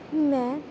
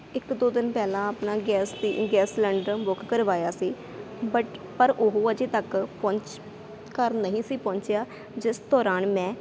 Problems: constant background noise